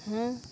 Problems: none marked